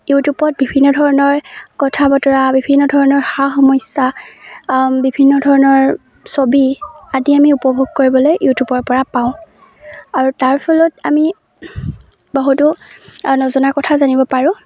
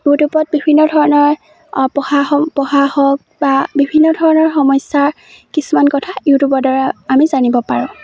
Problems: none marked